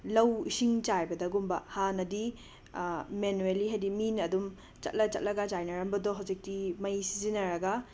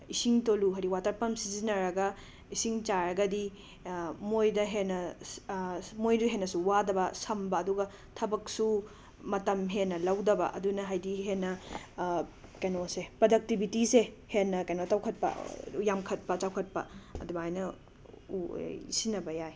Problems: background sounds at intervals